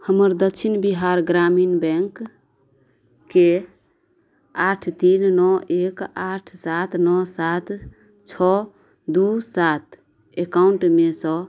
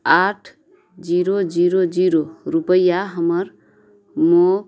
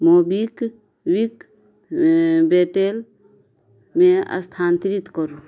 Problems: none marked